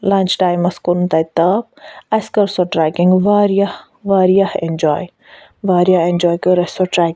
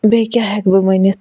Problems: none marked